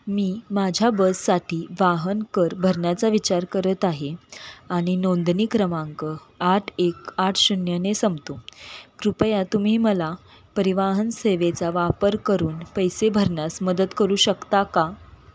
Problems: constant background noise